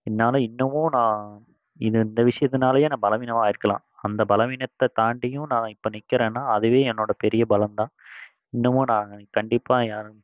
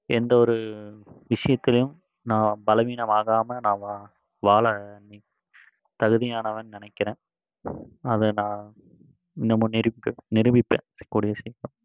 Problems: background sounds at intervals